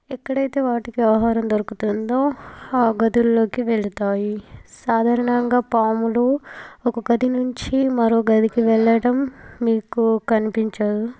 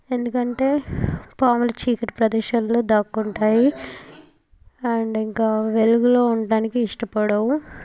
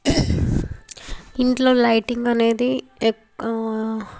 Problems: background sounds at intervals, background conversations at intervals